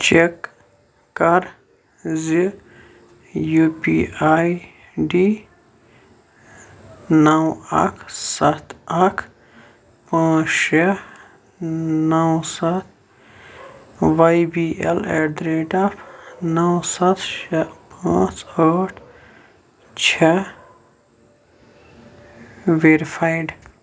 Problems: none marked